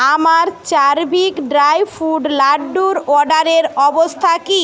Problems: background conversations at intervals